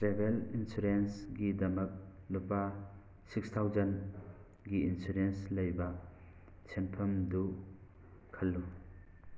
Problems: background sounds at intervals